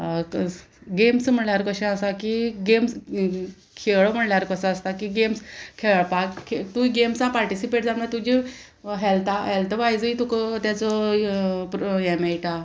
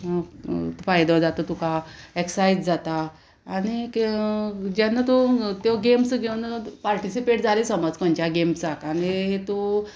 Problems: constant background noise